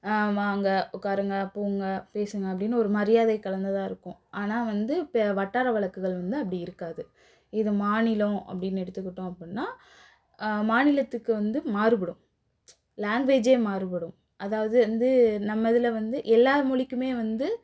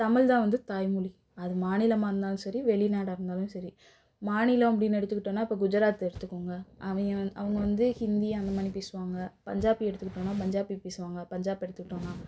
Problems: none marked